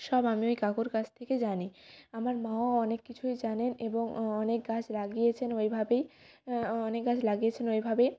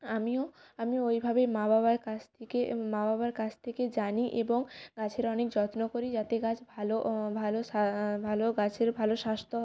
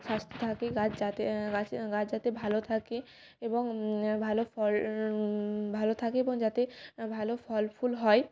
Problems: background sounds at intervals